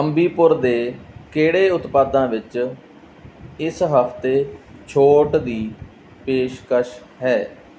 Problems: background sounds at intervals